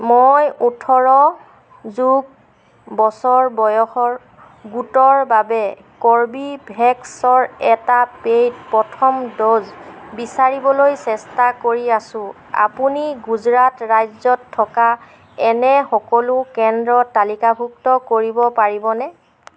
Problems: constant background noise